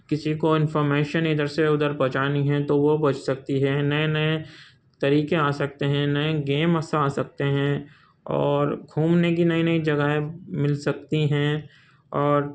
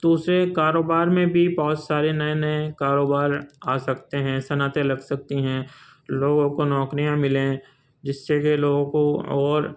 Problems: constant background noise